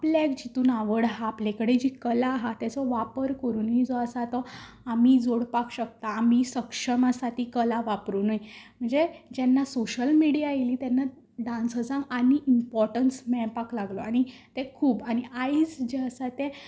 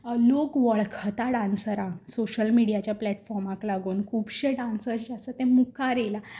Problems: constant background noise